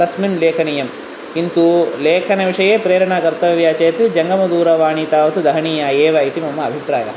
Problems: constant background noise